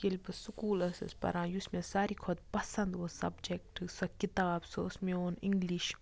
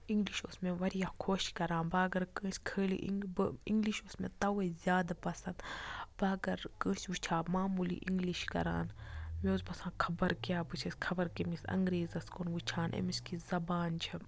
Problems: low volume